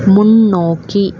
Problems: constant background noise